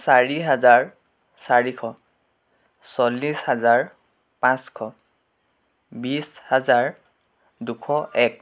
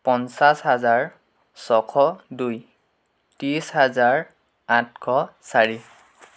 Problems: background sounds at intervals